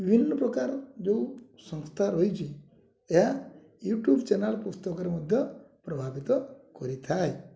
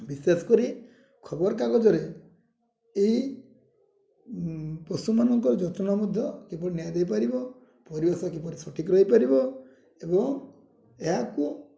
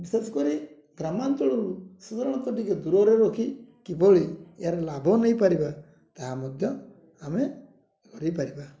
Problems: low volume